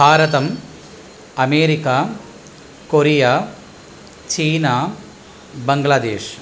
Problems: background sounds at intervals